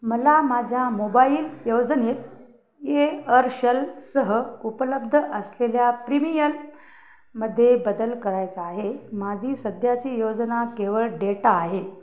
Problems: constant background noise